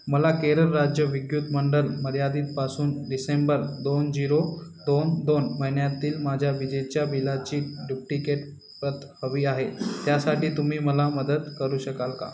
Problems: constant background noise